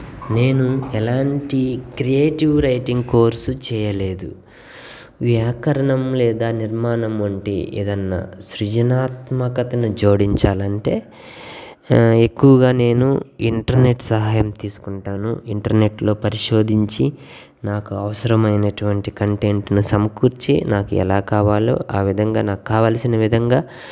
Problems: background sounds at intervals